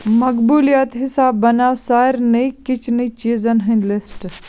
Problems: constant background noise